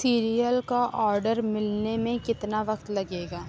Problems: none marked